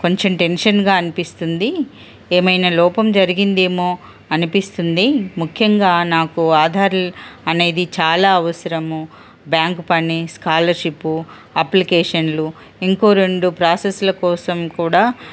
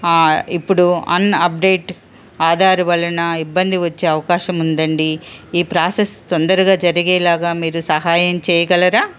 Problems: constant background noise